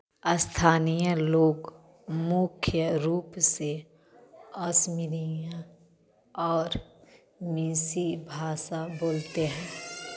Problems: background sounds at intervals